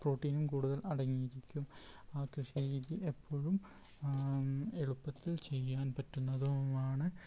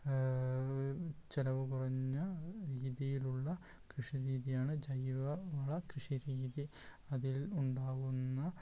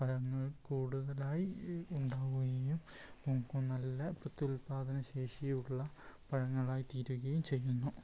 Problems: background sounds at intervals